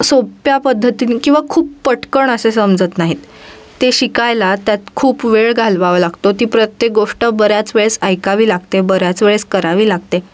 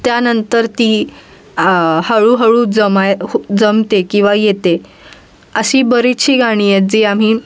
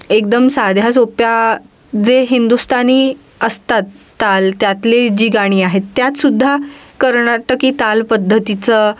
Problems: none marked